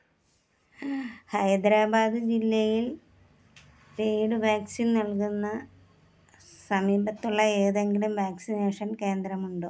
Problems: low volume